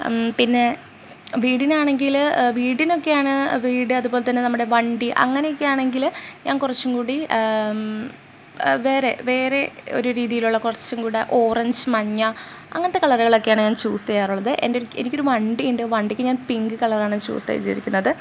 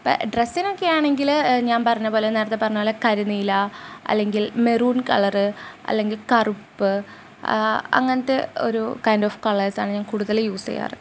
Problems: background sounds at intervals